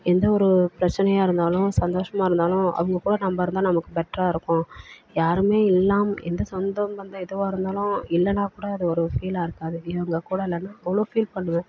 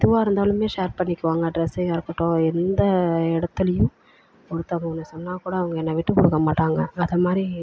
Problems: background conversations at intervals